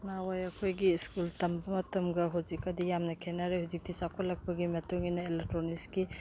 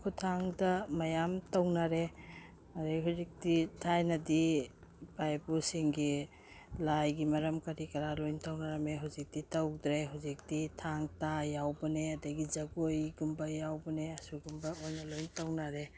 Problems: background sounds at intervals